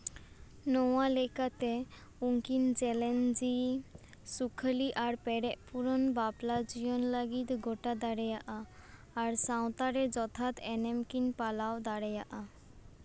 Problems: constant background noise